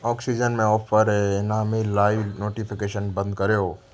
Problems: constant background noise